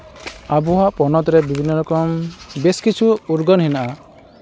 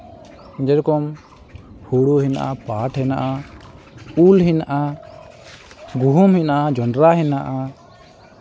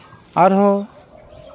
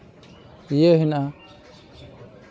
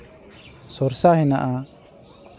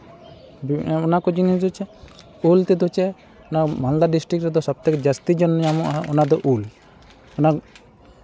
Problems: constant background noise, background conversations at intervals